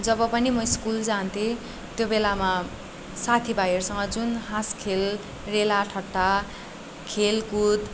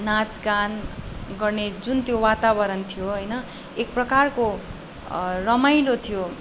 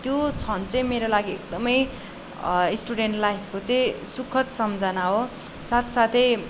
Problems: none marked